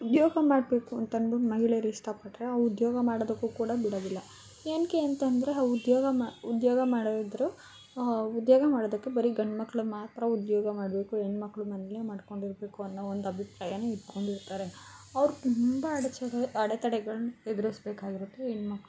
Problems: background sounds at intervals